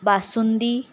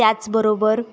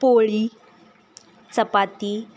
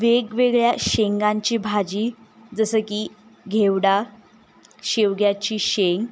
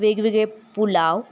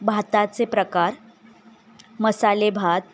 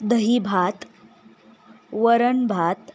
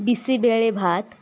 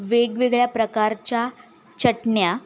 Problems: background sounds at intervals